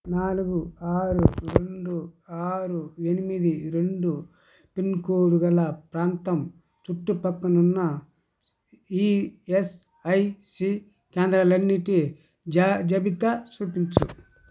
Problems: constant background noise